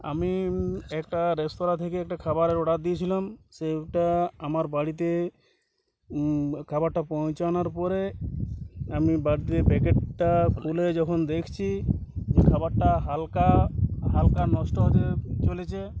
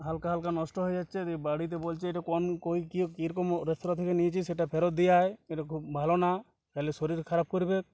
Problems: constant background noise